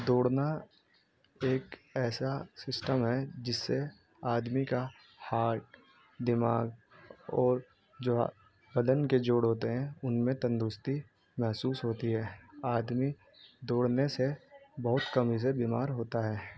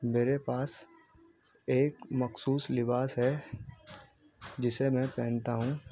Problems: constant background noise